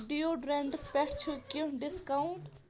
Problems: continuous background conversations